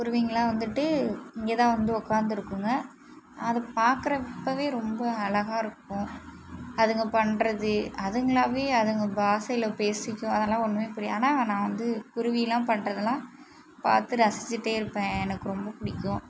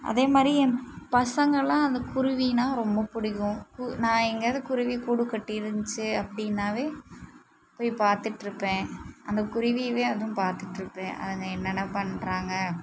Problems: none marked